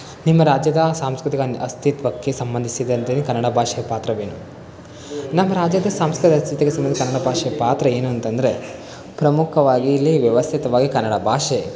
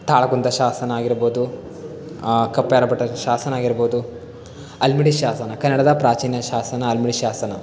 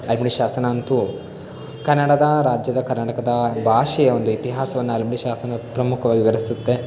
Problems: constant background noise